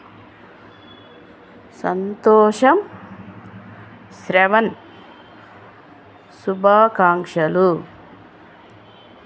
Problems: none marked